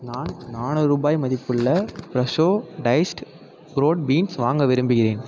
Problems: none marked